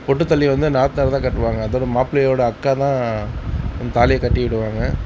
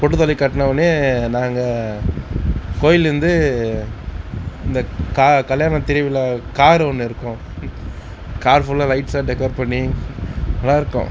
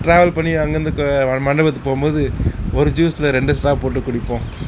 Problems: constant background noise, background conversations at intervals